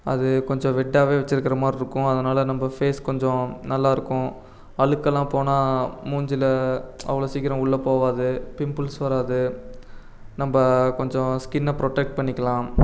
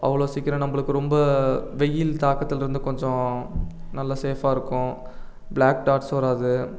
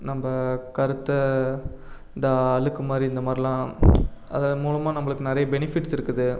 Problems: none marked